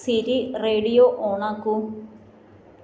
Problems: none marked